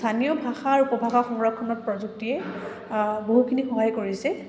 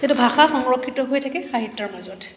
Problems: background sounds at intervals